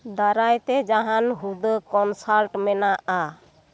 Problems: background conversations at intervals